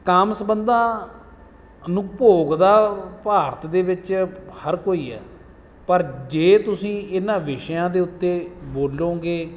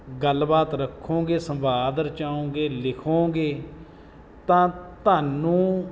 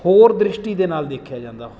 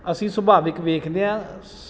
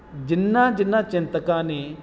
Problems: background sounds at intervals